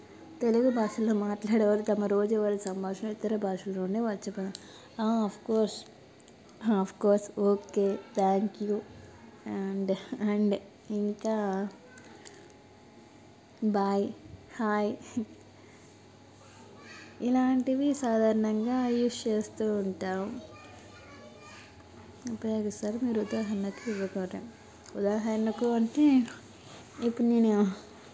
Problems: constant background noise